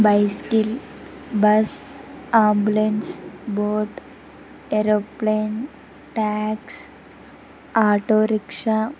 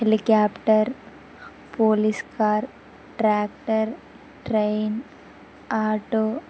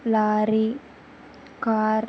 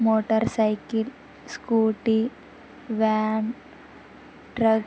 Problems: background sounds at intervals